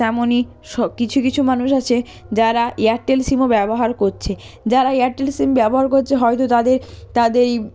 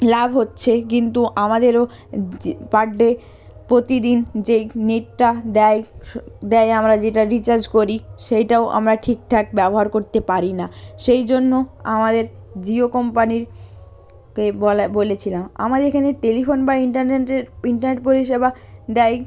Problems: none marked